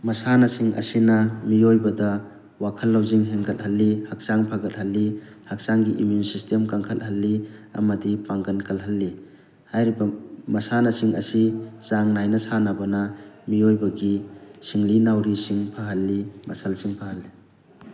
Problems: constant background noise, background conversations at intervals